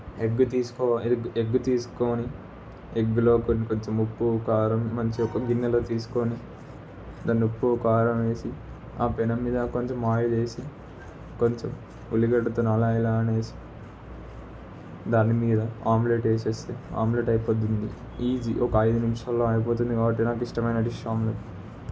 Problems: constant background noise